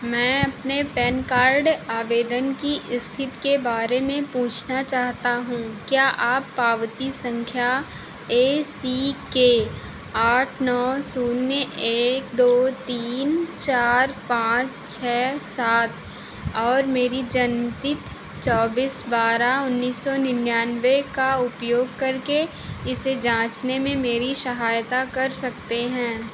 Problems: constant background noise